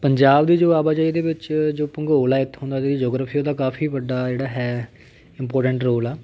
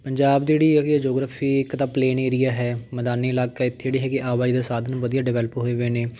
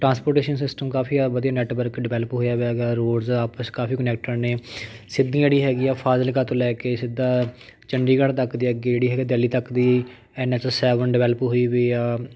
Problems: none marked